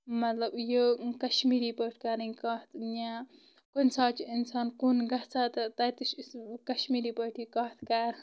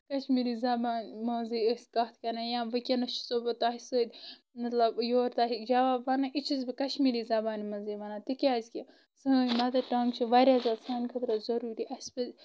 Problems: constant background noise